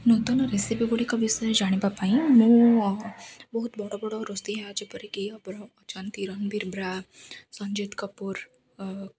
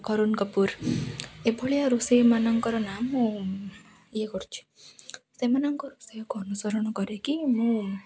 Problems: none marked